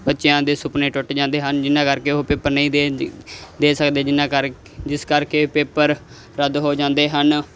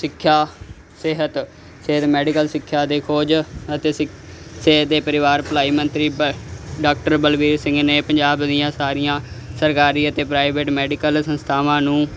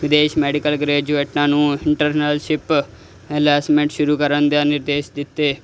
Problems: constant background noise